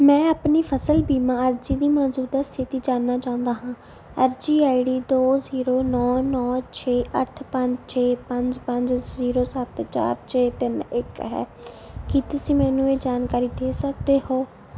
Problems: background sounds at intervals